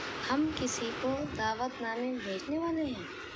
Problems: constant background noise